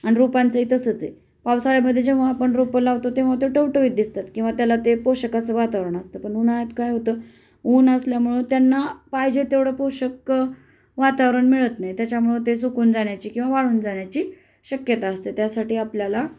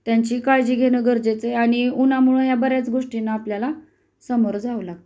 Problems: none marked